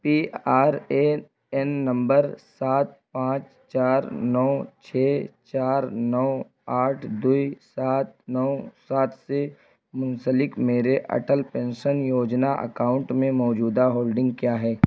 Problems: constant background noise